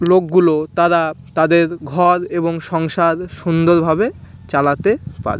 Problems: constant background noise, background conversations at intervals